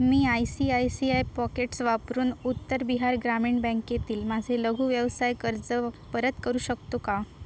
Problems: constant background noise